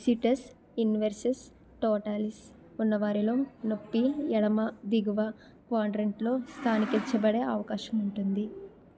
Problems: constant background noise, continuous background conversations